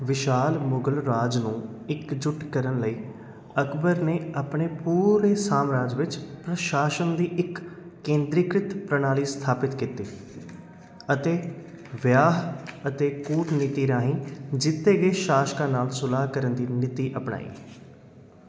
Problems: none marked